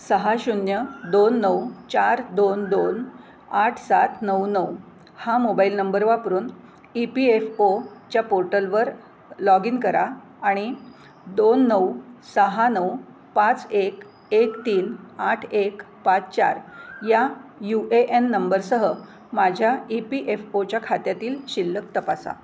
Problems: none marked